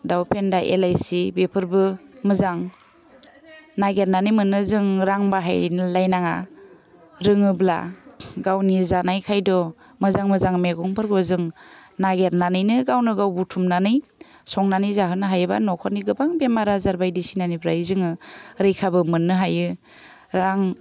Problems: none marked